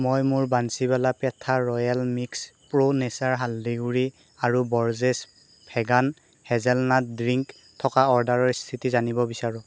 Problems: none marked